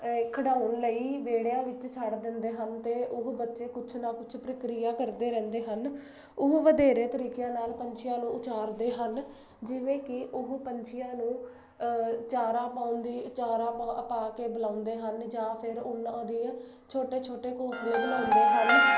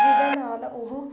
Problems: constant background noise